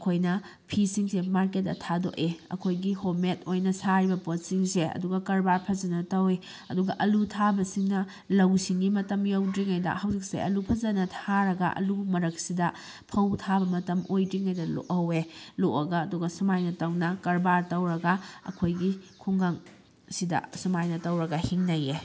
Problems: background sounds at intervals